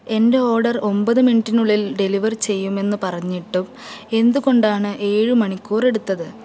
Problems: none marked